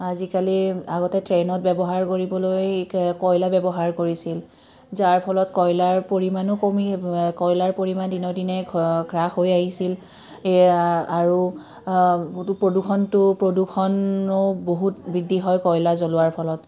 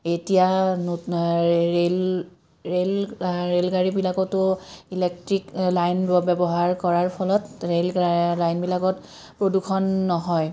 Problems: none marked